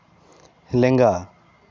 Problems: constant background noise